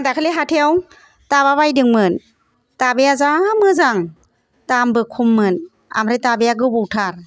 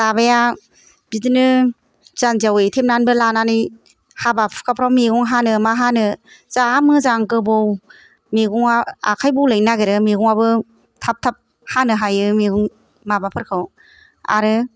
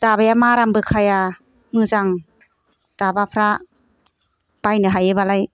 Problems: none marked